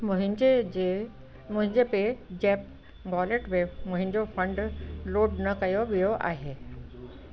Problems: constant background noise